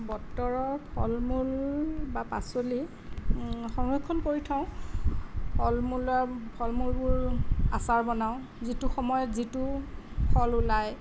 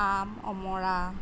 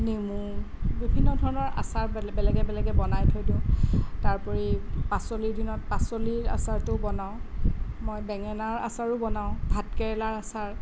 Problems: none marked